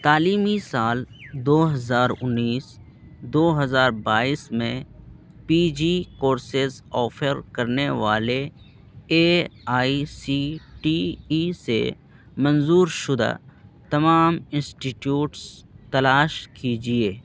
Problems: constant background noise